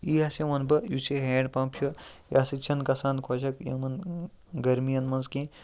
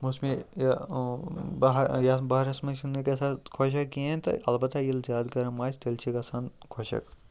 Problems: background sounds at intervals, background conversations at intervals